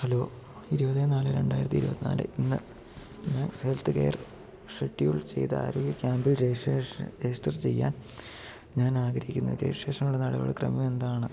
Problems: low volume